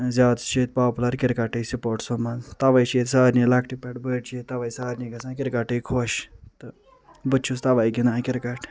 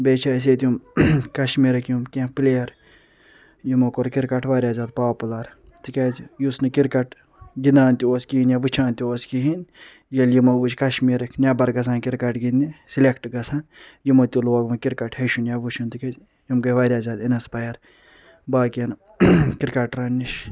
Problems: none marked